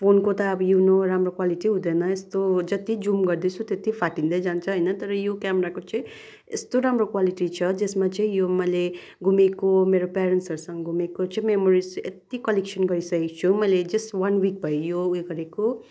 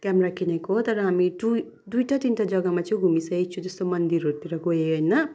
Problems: background sounds at intervals